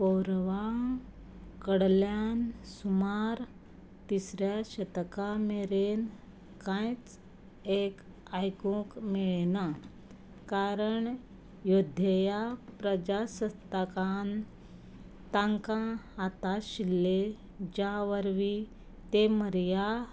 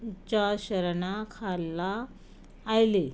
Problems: background sounds at intervals